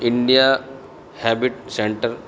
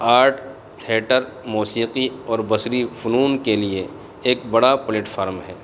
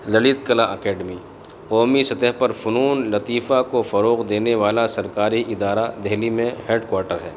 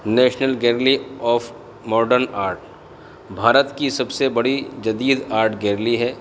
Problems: constant background noise